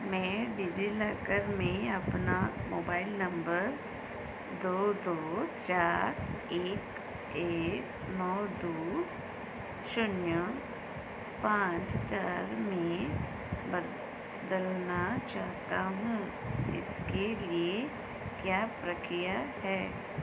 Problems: constant background noise